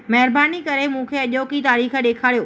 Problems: none marked